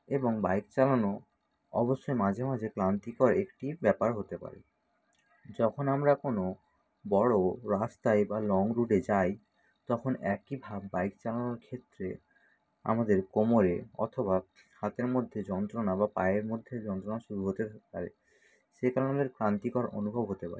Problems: none marked